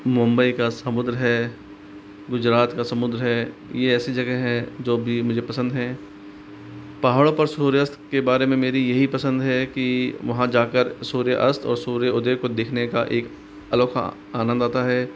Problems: constant background noise